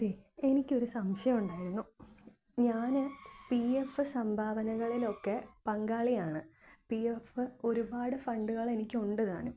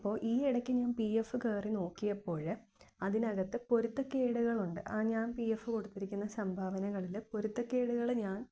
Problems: low volume